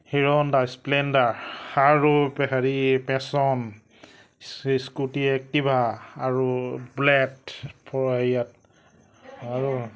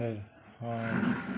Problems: none marked